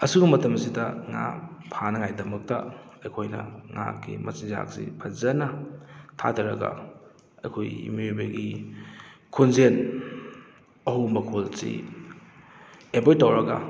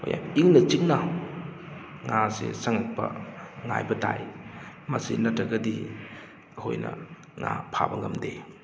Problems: background sounds at intervals